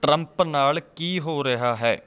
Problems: background sounds at intervals, background conversations at intervals